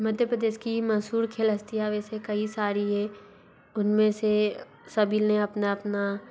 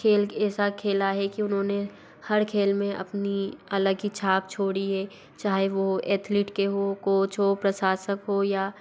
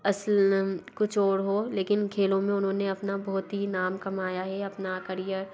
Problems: constant background noise